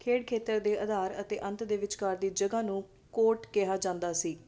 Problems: constant background noise